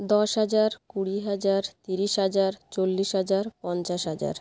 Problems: none marked